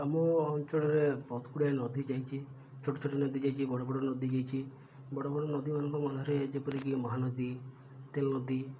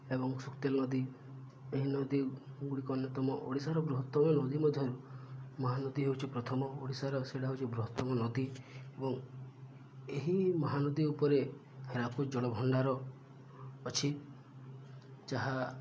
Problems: low volume